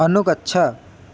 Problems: constant background noise